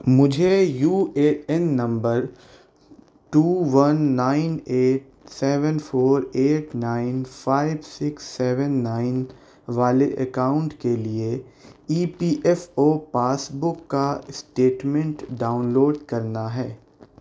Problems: none marked